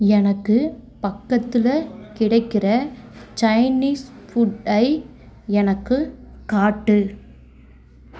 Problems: continuous background conversations